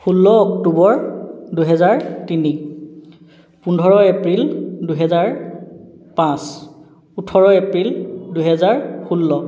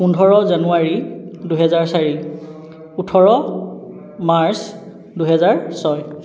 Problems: none marked